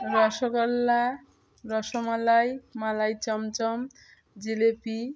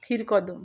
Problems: background conversations at intervals